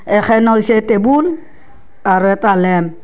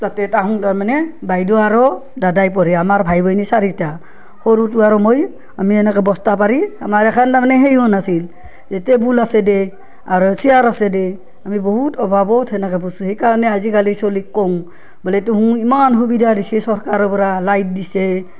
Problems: none marked